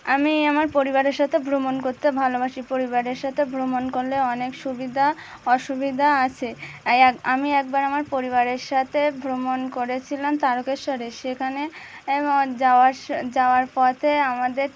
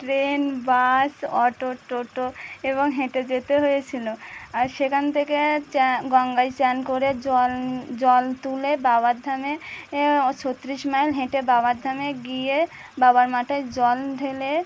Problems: constant background noise